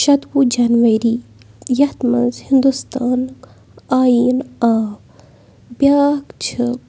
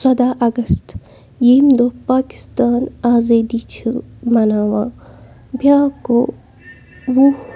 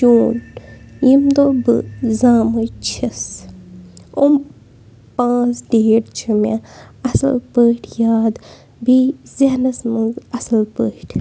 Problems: background sounds at intervals